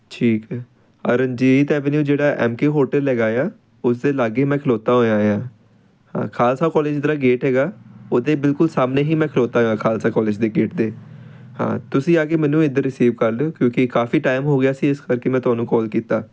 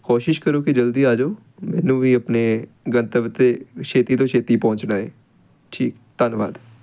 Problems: background sounds at intervals